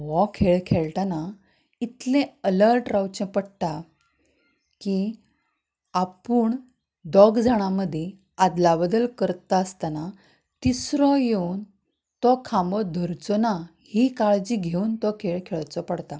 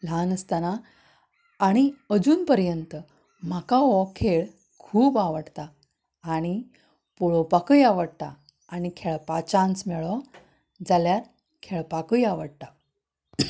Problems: constant background noise